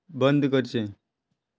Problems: none marked